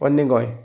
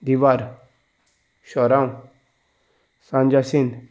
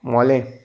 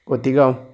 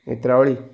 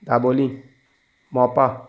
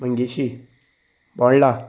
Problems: none marked